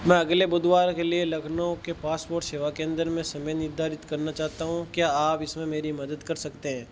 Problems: constant background noise